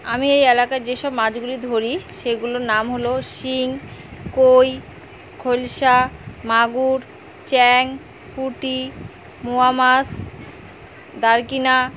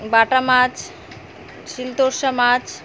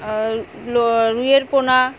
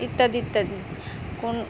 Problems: constant background noise